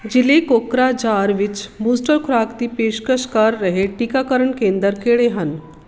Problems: constant background noise